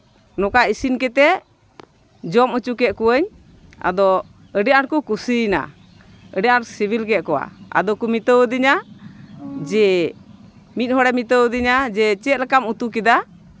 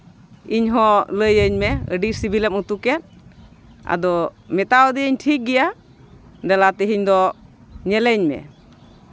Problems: constant background noise, continuous background conversations